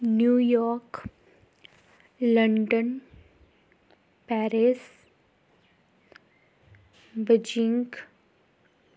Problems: none marked